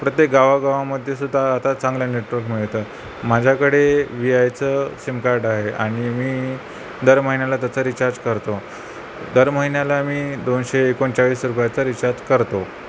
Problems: none marked